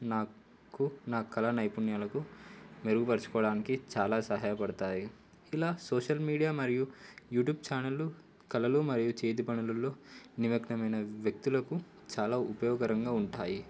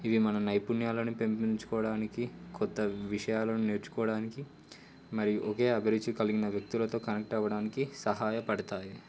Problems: constant background noise